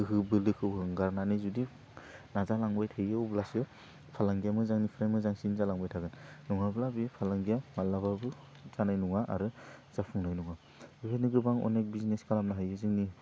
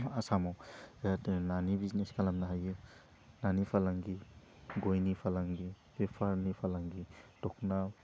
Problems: low volume